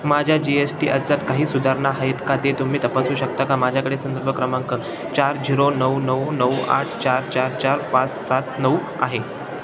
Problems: constant background noise, continuous background conversations